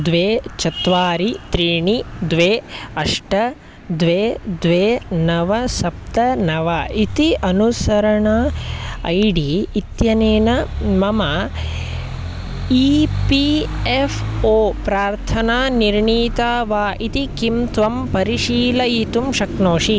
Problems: constant background noise